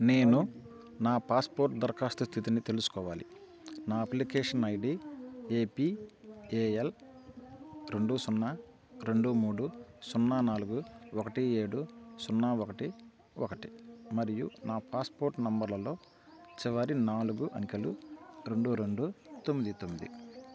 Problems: continuous background conversations